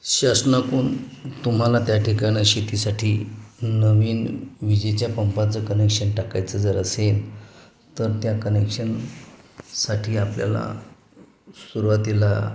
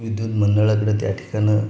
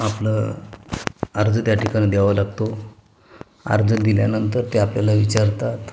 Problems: constant background noise, background conversations at intervals